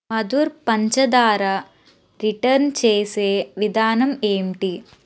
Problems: constant background noise